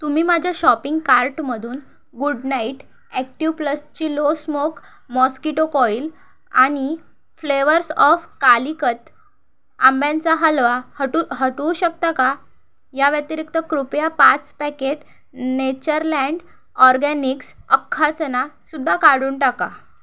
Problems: none marked